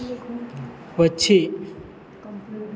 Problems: constant background noise